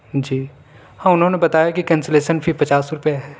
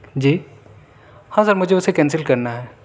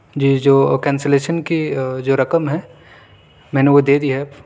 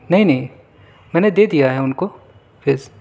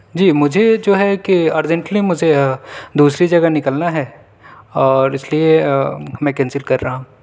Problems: none marked